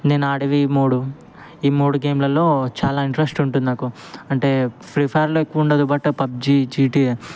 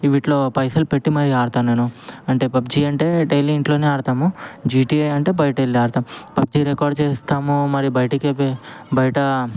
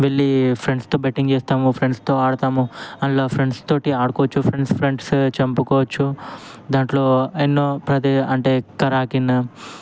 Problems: background conversations at intervals